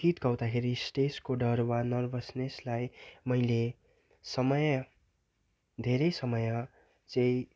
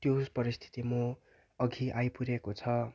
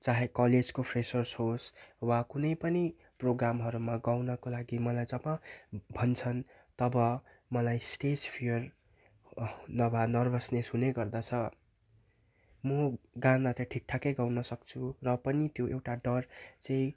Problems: none marked